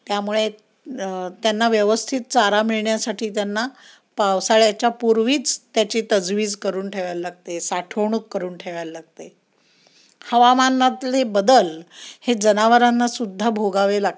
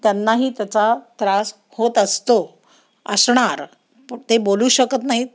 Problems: none marked